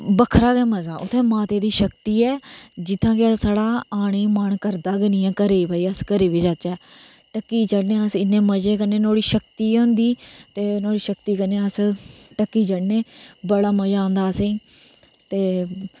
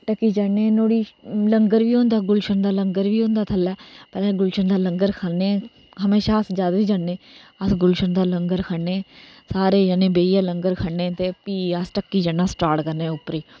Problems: none marked